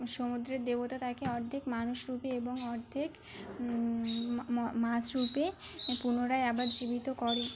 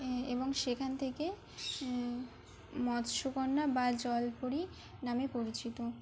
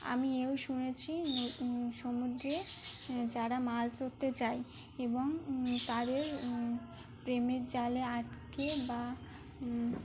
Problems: none marked